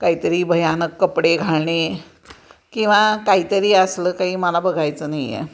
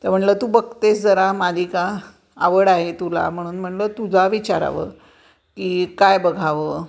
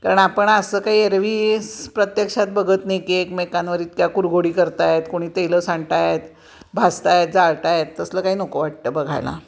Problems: constant background noise, continuous background conversations